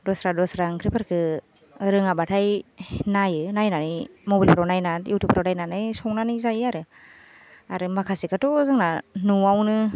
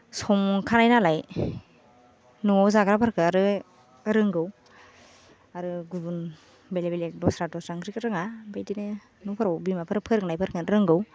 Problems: none marked